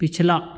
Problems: none marked